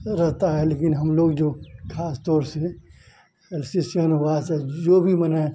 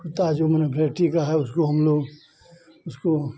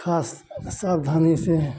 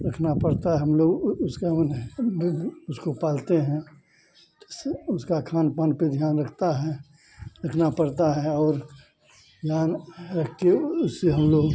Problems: constant background noise, continuous background conversations, low volume